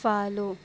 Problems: background sounds at intervals